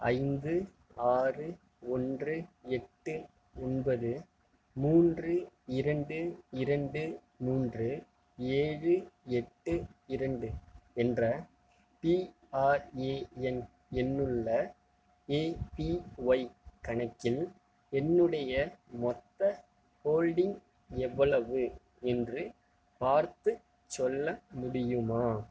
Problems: low volume